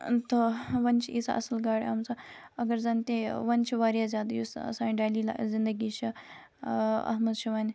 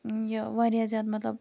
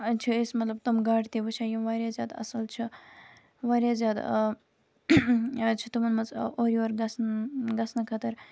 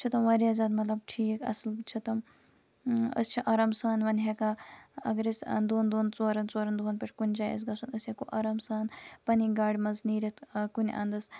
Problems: constant background noise